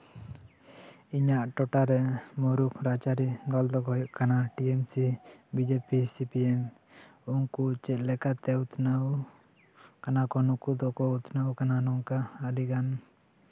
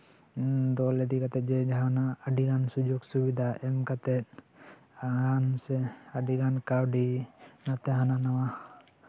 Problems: constant background noise, continuous background conversations